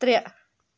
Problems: none marked